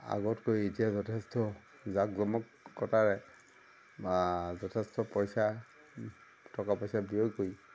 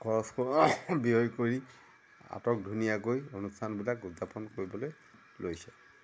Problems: constant background noise